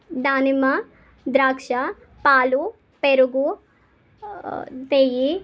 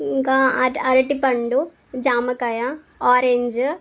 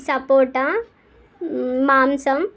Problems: constant background noise